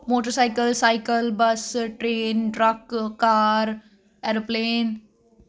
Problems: constant background noise